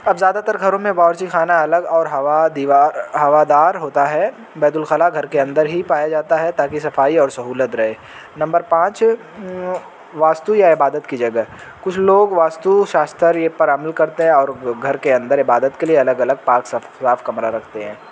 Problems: constant background noise